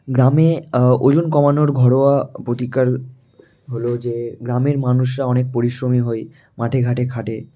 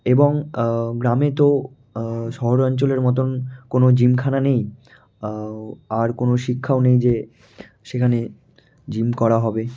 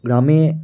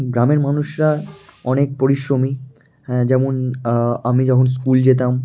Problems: none marked